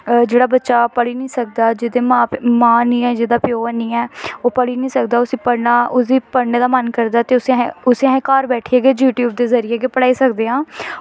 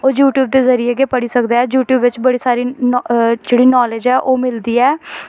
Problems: none marked